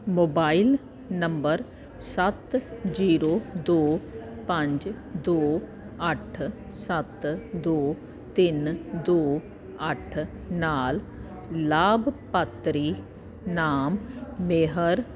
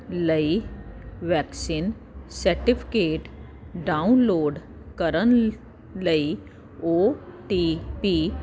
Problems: none marked